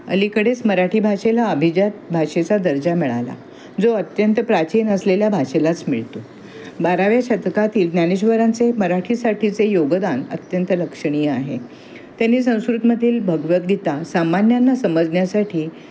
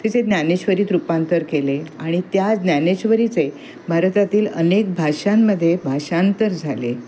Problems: constant background noise